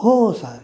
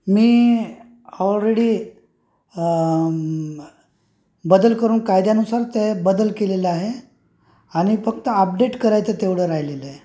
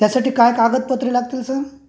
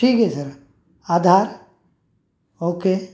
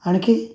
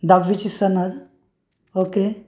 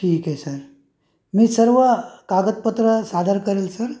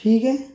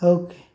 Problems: constant background noise, background conversations at intervals